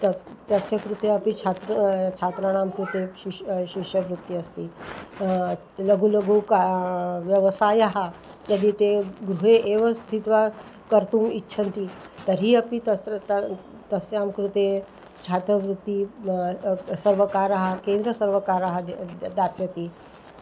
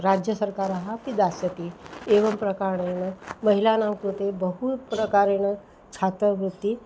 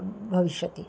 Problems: none marked